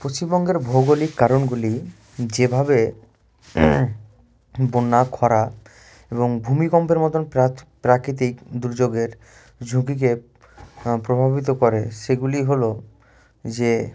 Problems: constant background noise